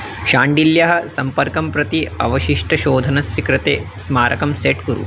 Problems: constant background noise